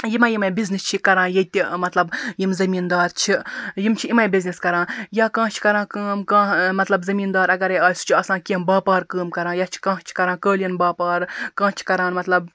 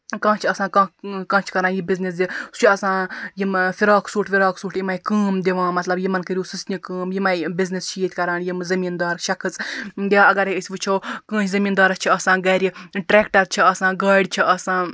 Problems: background sounds at intervals